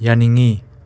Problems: background conversations at intervals